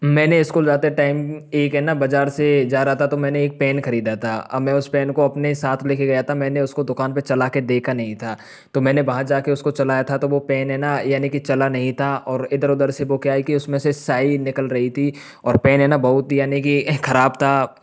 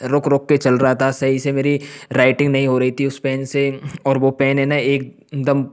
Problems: background sounds at intervals